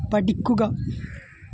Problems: constant background noise